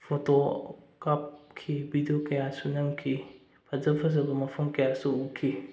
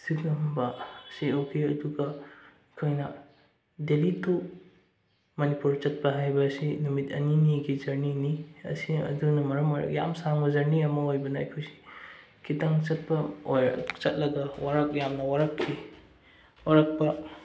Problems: none marked